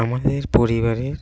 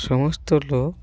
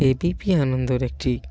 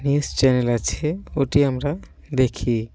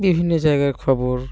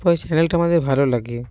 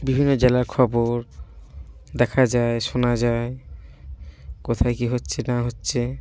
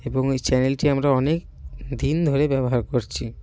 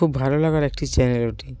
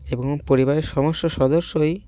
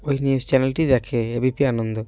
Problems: none marked